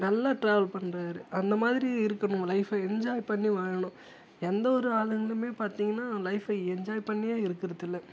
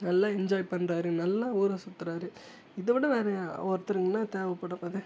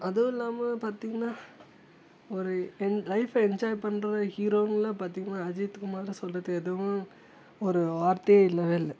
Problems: low volume